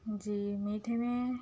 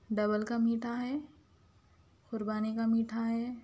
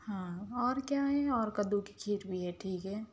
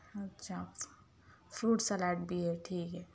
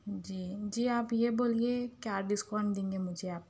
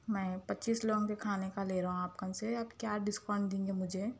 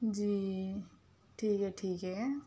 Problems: none marked